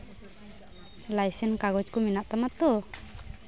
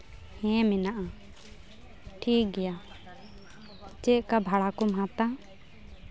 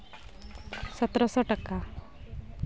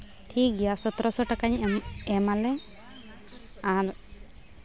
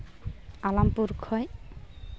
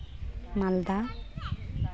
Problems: background sounds at intervals